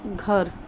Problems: none marked